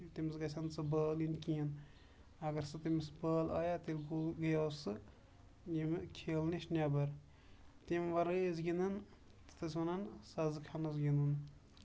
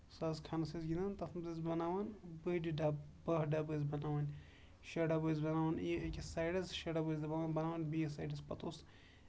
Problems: background sounds at intervals